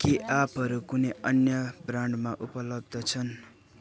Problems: continuous background conversations